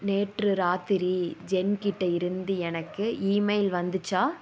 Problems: background sounds at intervals